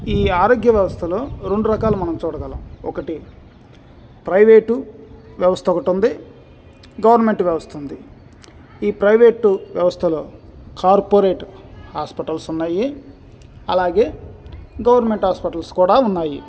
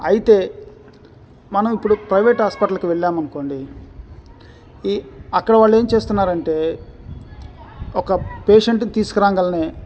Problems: none marked